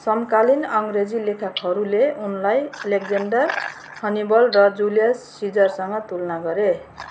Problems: background sounds at intervals